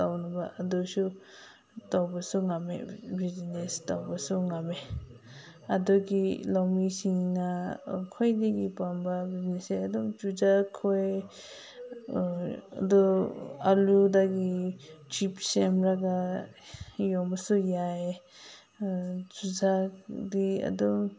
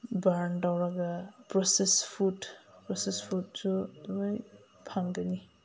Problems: background sounds at intervals